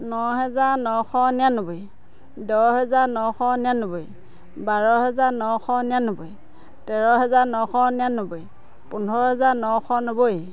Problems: continuous background conversations